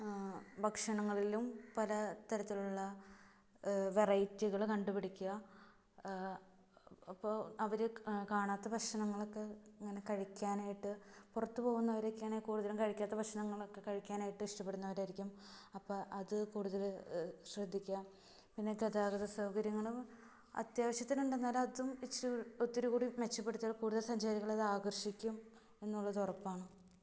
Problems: low volume